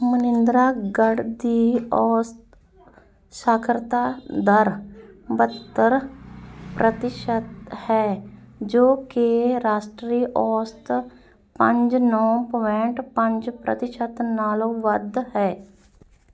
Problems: background conversations at intervals